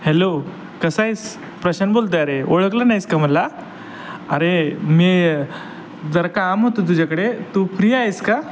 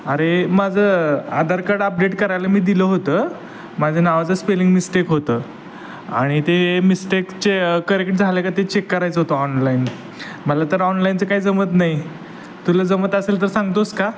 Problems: constant background noise, background conversations at intervals